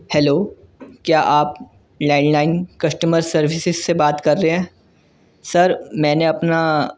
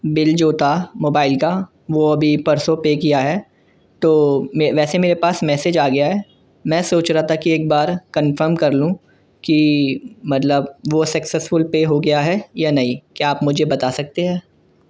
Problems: none marked